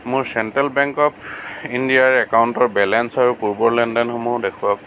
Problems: constant background noise